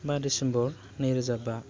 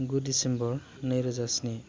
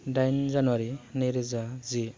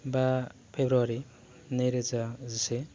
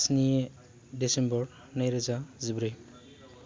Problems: none marked